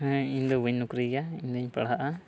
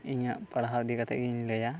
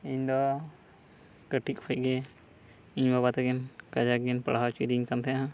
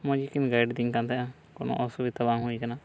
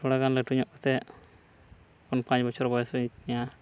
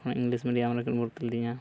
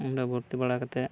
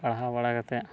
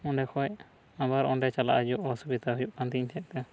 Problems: none marked